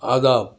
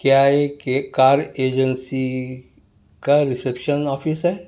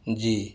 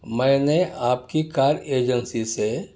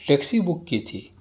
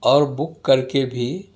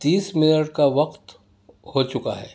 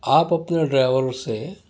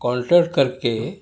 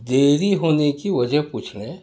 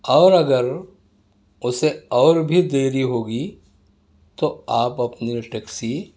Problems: none marked